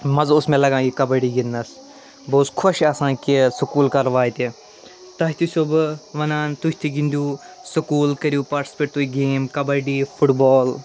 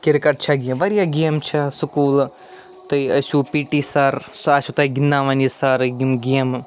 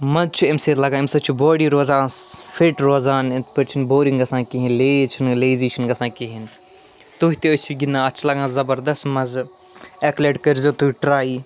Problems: none marked